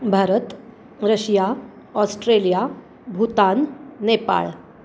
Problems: constant background noise